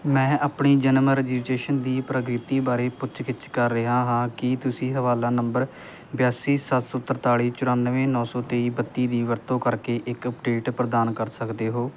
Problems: constant background noise